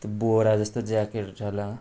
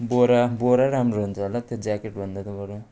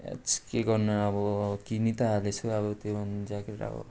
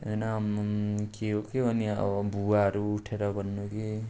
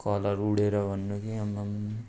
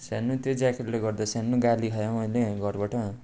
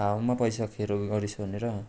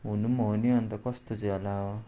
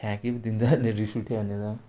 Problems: background sounds at intervals